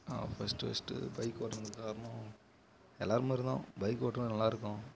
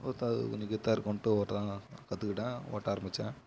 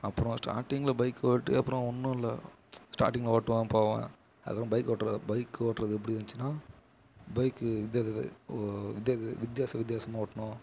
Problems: low volume